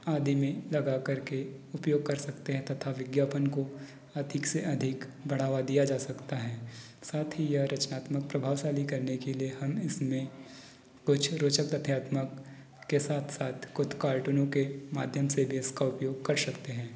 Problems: background sounds at intervals